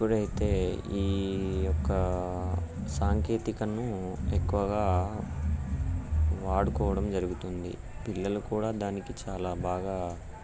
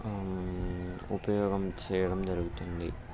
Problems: background sounds at intervals